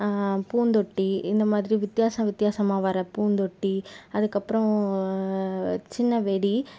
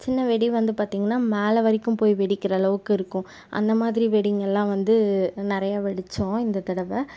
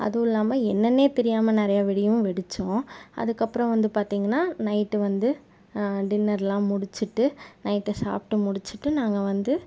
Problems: none marked